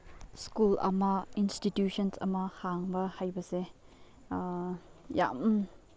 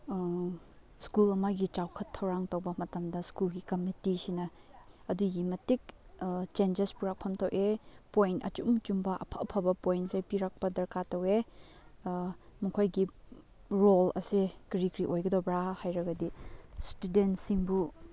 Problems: background conversations at intervals